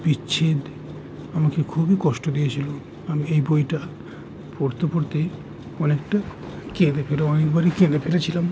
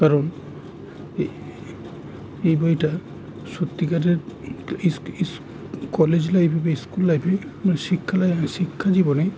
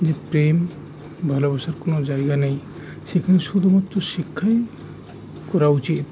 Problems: constant background noise